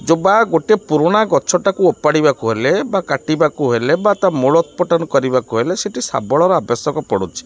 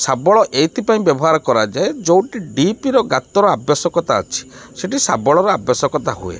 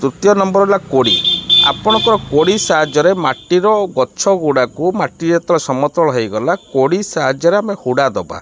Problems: none marked